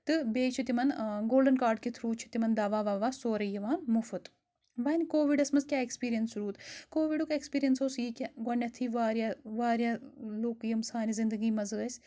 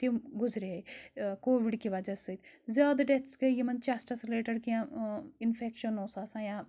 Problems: none marked